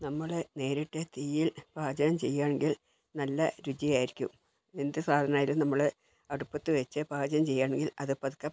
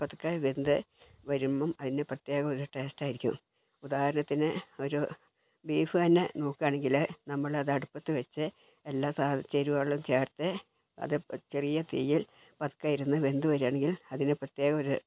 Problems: low volume